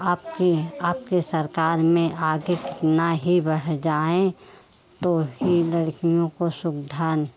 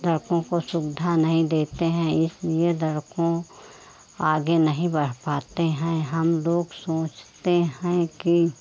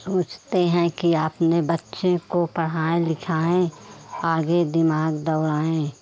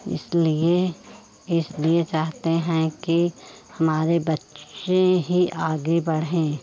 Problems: none marked